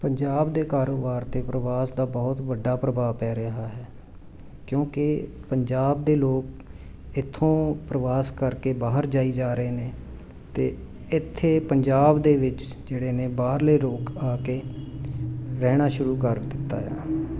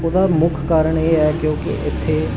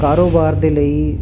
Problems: none marked